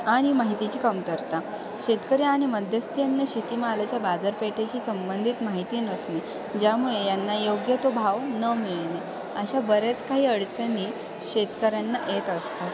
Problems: constant background noise, continuous background conversations